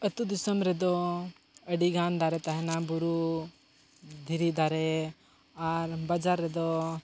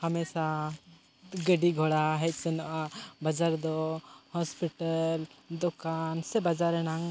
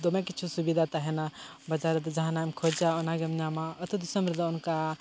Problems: none marked